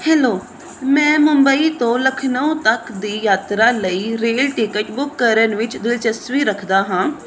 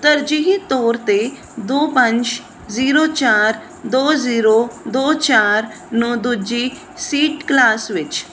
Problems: none marked